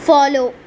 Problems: constant background noise